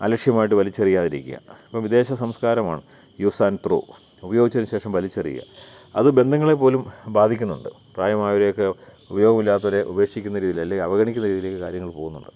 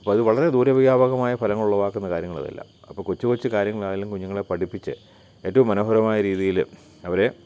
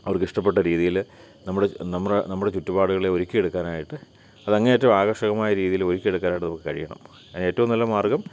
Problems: none marked